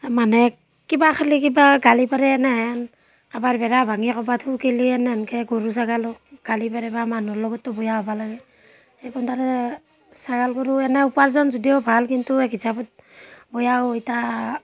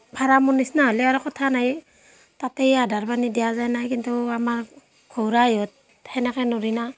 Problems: constant background noise